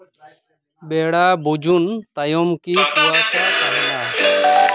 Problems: background sounds at intervals, background conversations at intervals